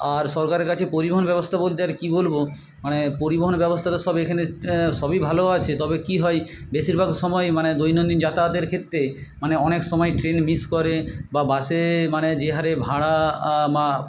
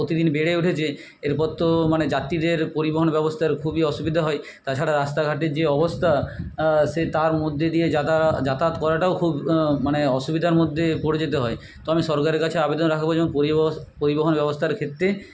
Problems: none marked